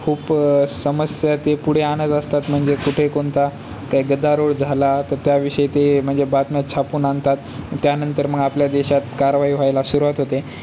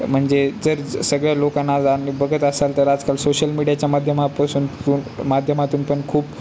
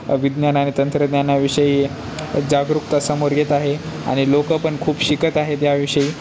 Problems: constant background noise